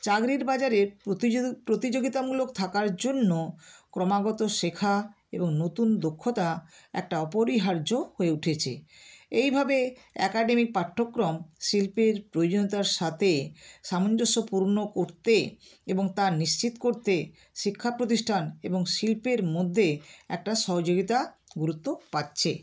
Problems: none marked